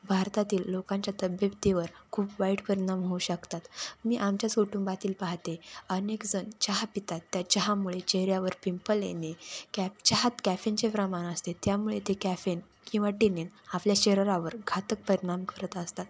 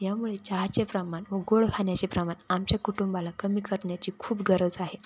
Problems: constant background noise